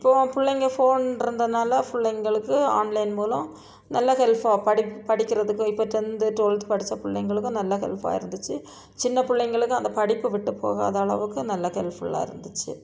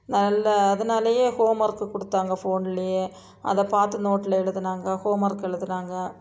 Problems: background sounds at intervals, background conversations at intervals